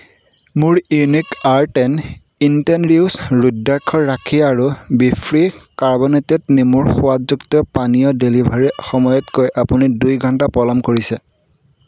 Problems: none marked